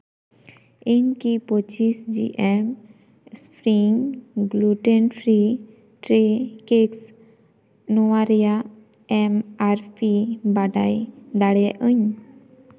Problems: none marked